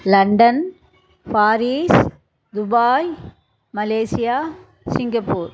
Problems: background sounds at intervals, echo